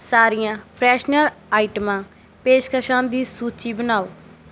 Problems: background sounds at intervals